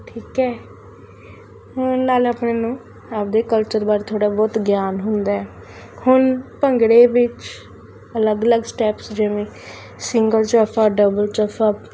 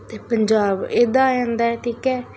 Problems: constant background noise